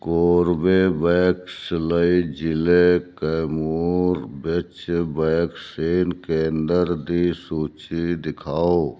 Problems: none marked